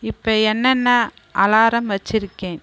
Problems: none marked